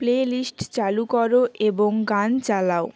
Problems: constant background noise